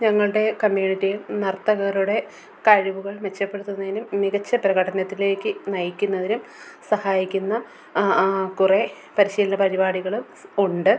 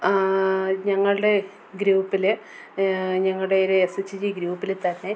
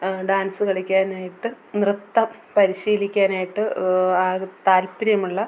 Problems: background sounds at intervals